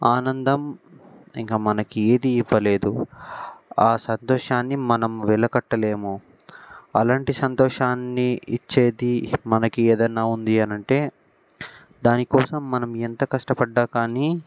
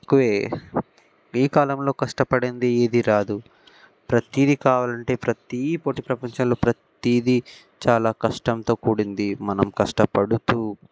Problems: background sounds at intervals